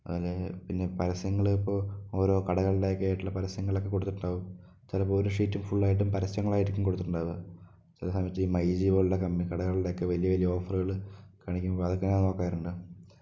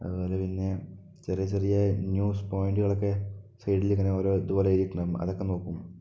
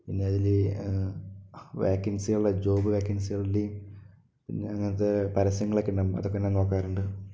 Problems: low volume